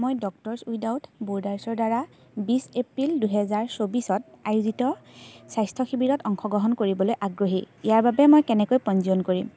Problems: constant background noise